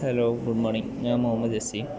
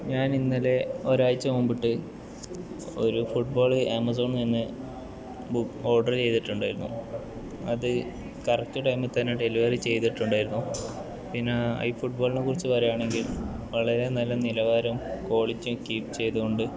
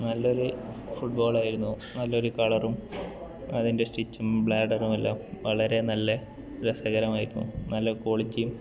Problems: constant background noise